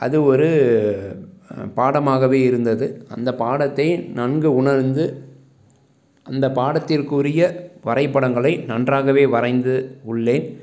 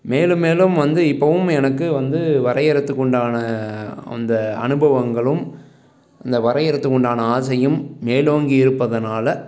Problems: background sounds at intervals, background conversations at intervals